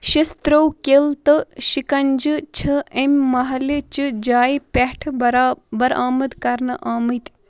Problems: none marked